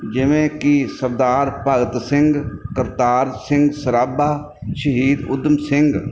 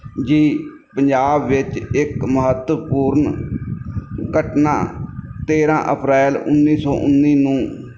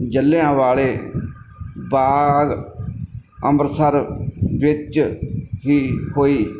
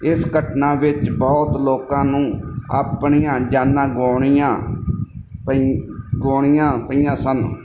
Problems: background sounds at intervals